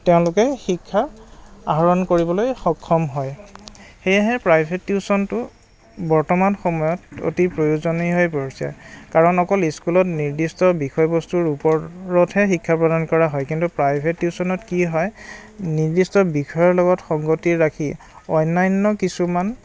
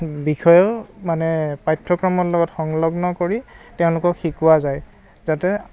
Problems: none marked